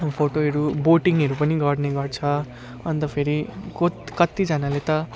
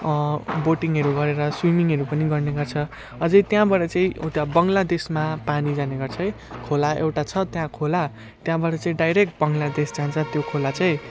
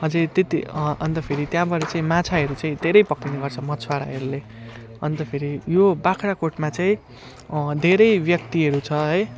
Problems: constant background noise